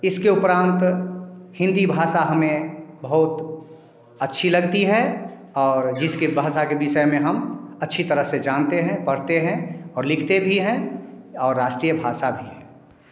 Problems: none marked